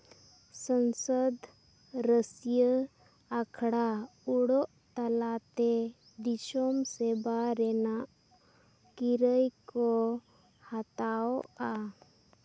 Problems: low volume